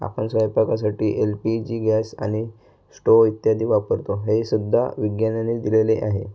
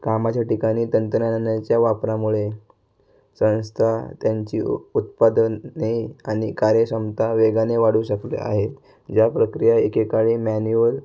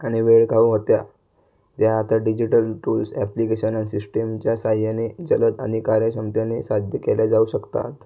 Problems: constant background noise